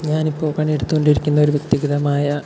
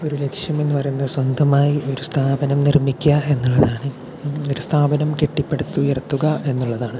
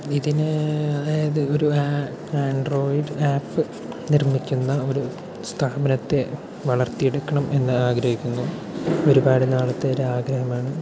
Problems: constant background noise